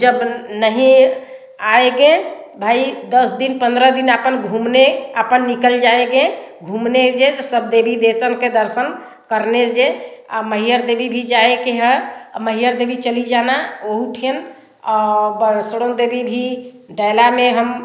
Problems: none marked